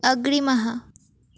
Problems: background sounds at intervals